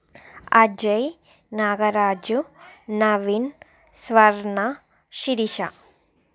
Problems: background conversations at intervals